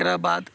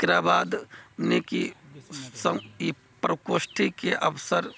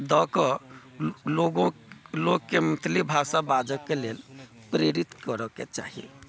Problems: none marked